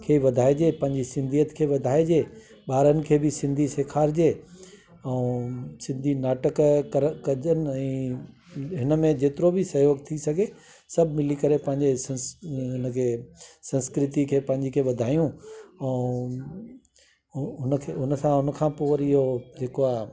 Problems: constant background noise